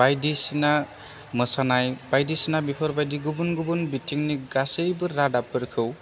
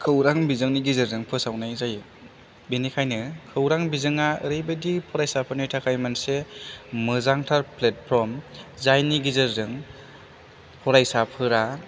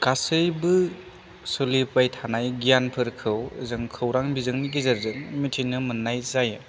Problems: low volume